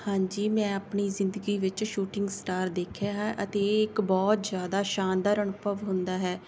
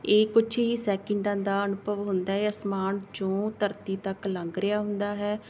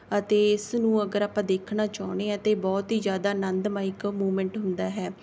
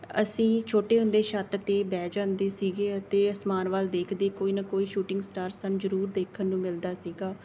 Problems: background sounds at intervals